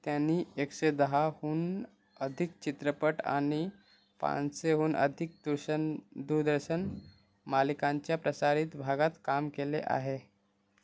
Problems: constant background noise